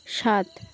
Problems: constant background noise, continuous background conversations